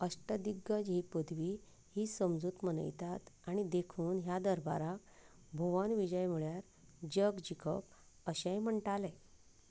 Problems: background sounds at intervals, low volume